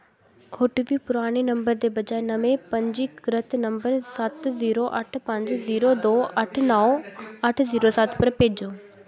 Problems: constant background noise, background conversations at intervals